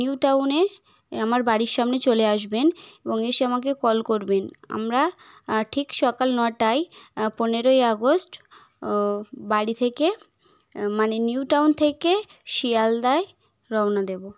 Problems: none marked